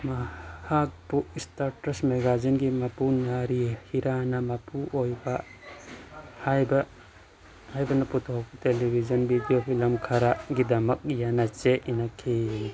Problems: constant background noise, background conversations at intervals